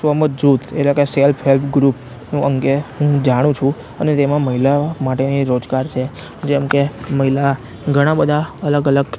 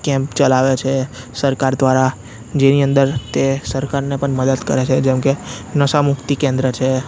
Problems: constant background noise